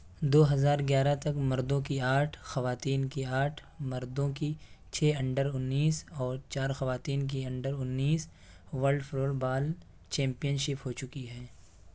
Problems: background sounds at intervals